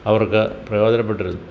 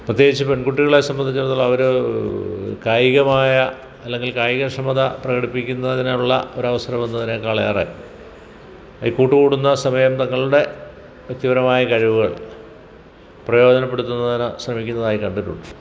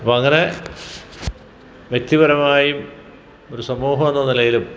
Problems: background sounds at intervals